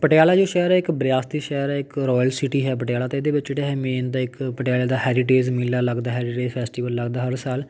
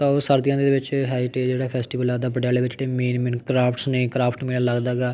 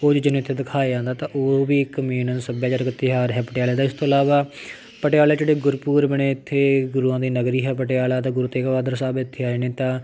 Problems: background sounds at intervals, background conversations at intervals